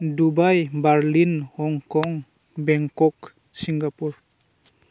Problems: constant background noise